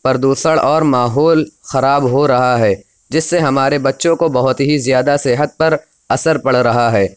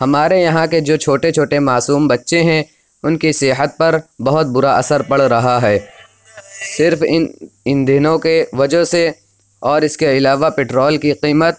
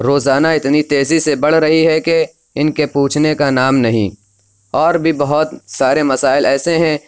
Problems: none marked